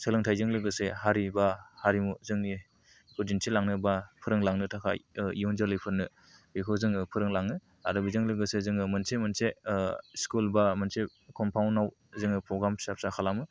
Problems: low volume